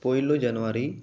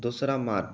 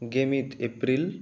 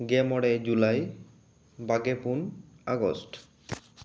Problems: echo